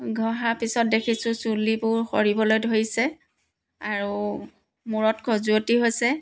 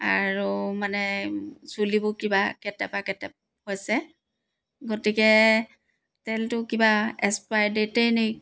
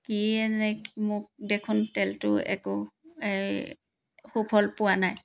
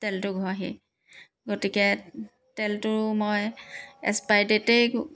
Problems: background sounds at intervals